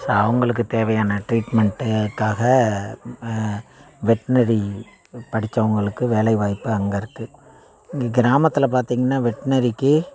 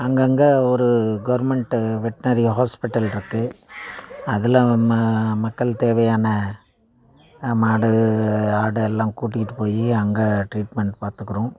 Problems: constant background noise